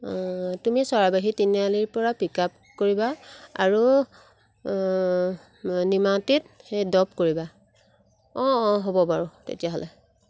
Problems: background sounds at intervals